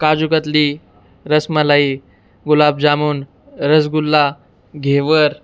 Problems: none marked